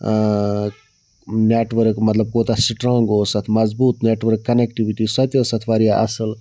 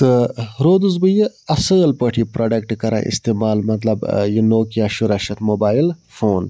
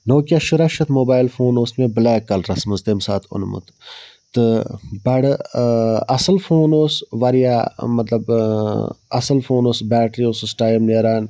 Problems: background sounds at intervals